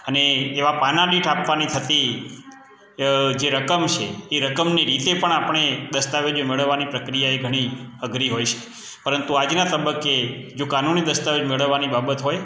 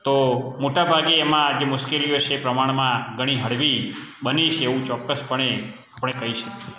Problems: none marked